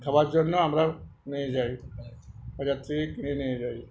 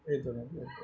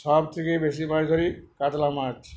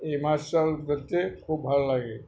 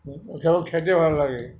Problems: background conversations at intervals